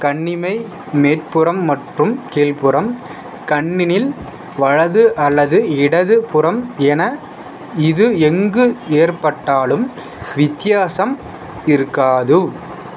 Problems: none marked